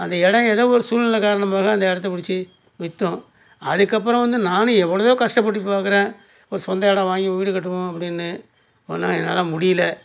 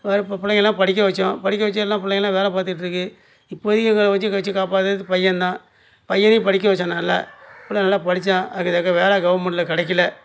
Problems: none marked